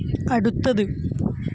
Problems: constant background noise